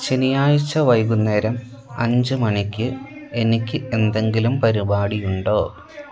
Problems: background sounds at intervals